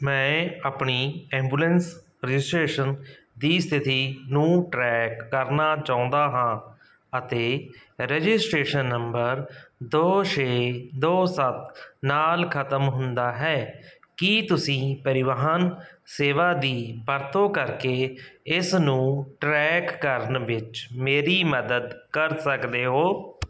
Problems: none marked